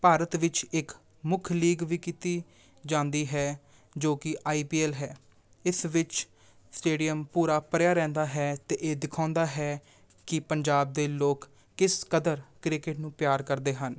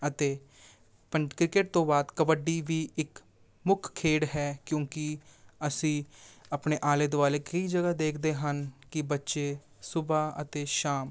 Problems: none marked